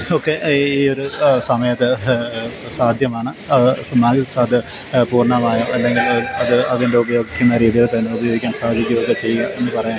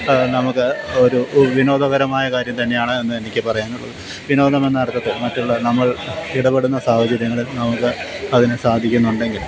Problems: constant background noise